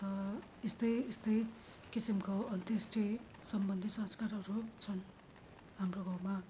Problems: low volume